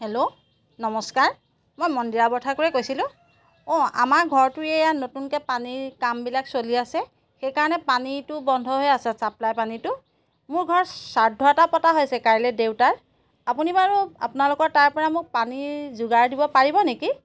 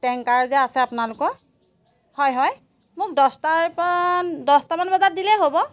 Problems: background sounds at intervals